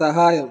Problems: none marked